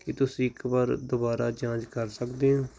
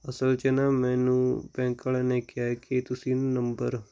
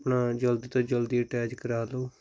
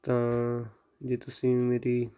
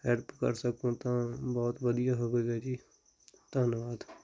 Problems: none marked